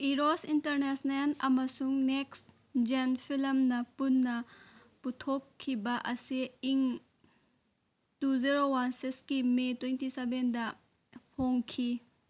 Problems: none marked